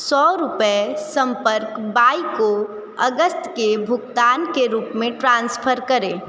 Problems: constant background noise